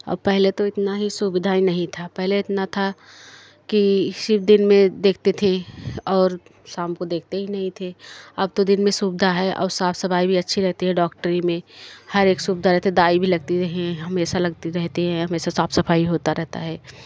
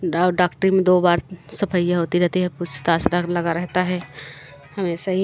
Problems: none marked